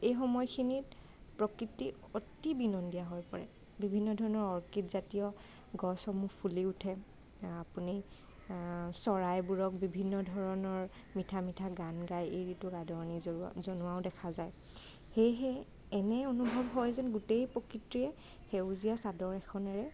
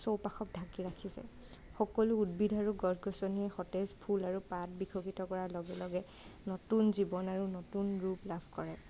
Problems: none marked